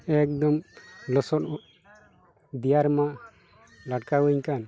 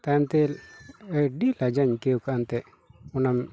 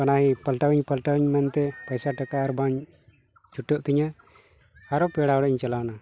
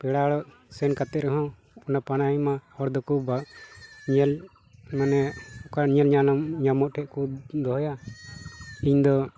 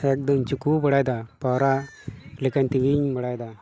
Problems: constant background noise, background conversations at intervals